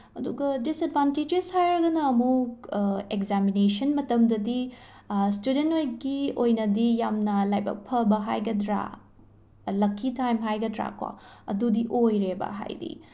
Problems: background sounds at intervals